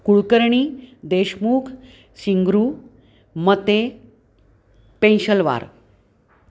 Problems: none marked